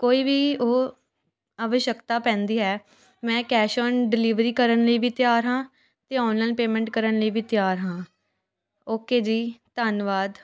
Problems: constant background noise, continuous background conversations